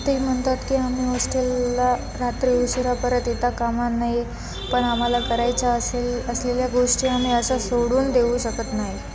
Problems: constant background noise